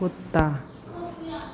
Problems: constant background noise, continuous background conversations